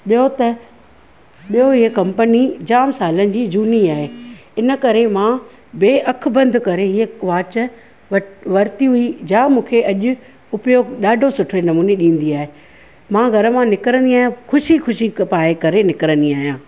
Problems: background sounds at intervals